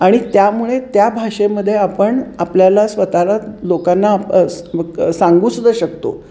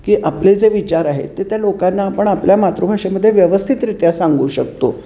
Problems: none marked